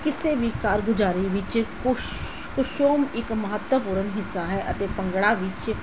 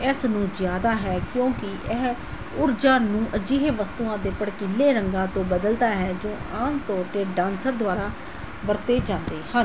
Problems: none marked